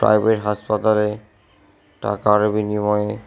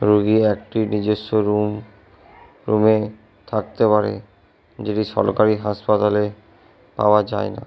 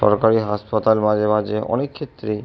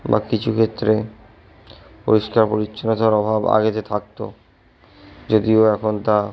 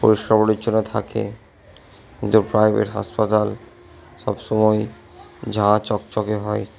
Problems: background conversations at intervals